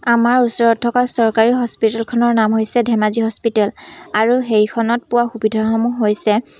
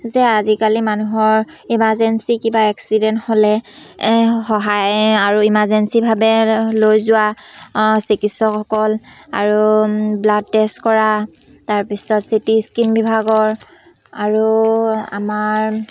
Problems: constant background noise, background conversations at intervals